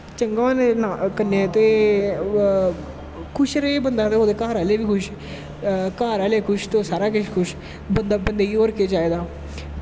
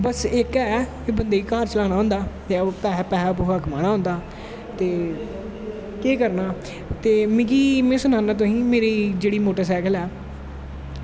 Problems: constant background noise, echo